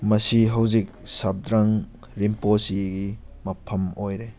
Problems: background sounds at intervals